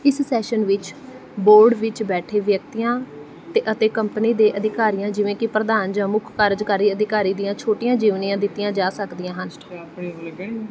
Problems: none marked